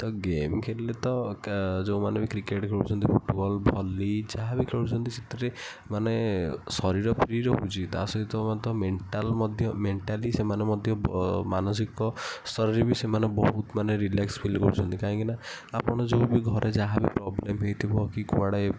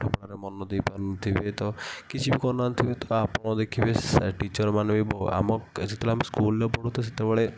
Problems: none marked